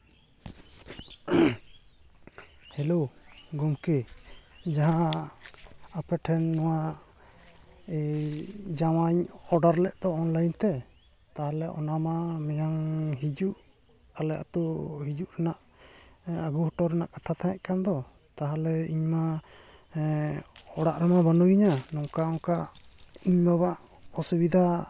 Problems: background sounds at intervals